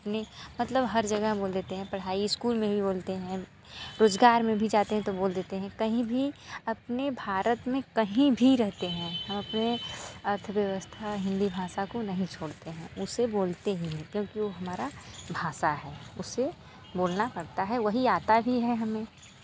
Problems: constant background noise